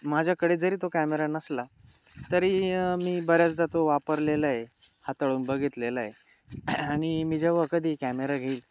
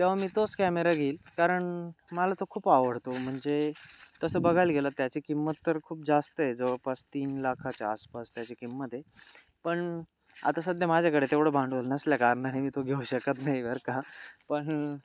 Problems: constant background noise, background conversations at intervals